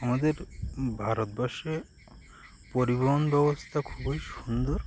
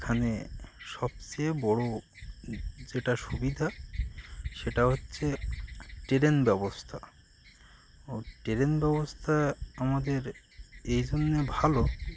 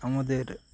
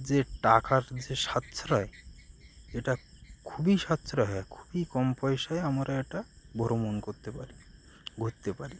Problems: constant background noise, continuous background conversations